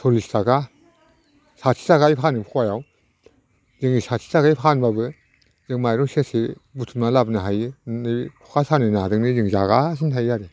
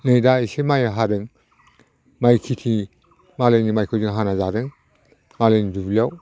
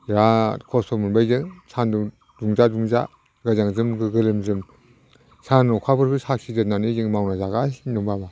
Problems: none marked